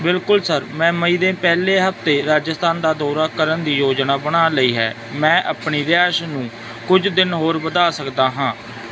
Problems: constant background noise